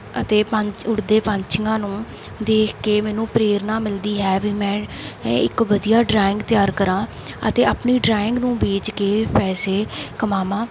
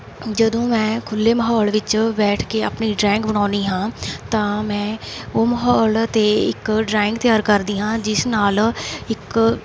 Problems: constant background noise